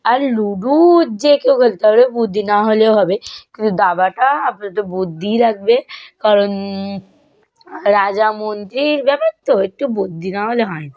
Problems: none marked